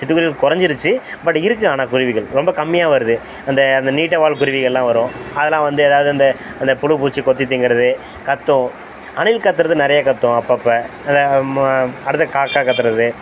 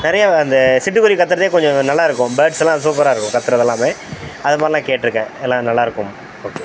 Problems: constant background noise